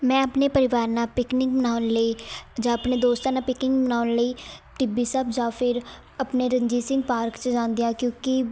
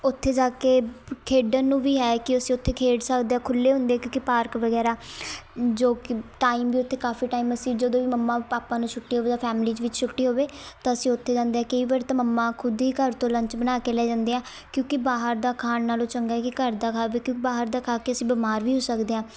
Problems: constant background noise, background conversations at intervals